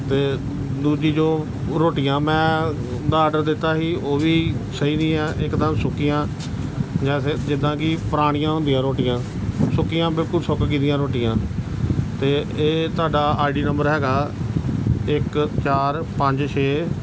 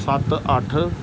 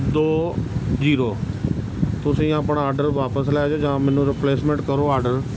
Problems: background sounds at intervals